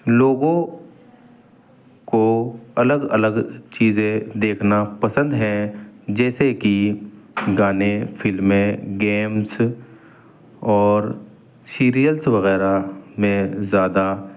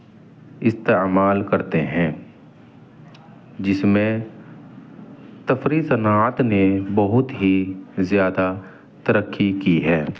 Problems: none marked